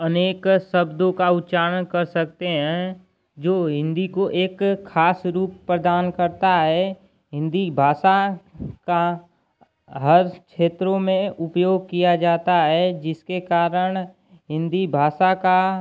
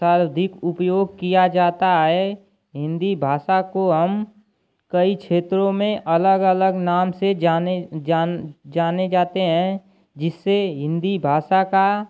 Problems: constant background noise